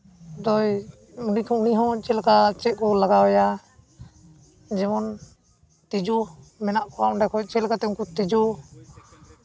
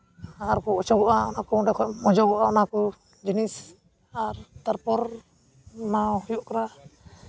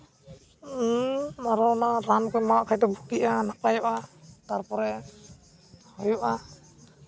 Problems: none marked